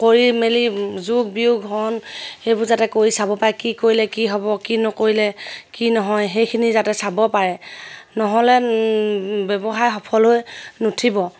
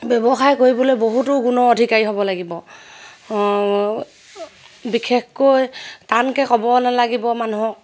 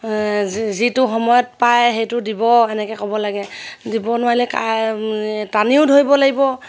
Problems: none marked